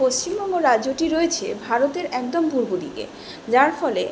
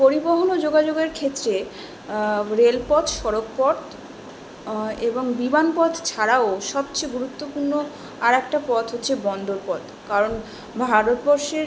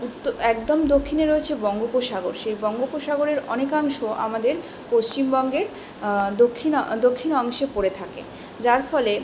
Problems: none marked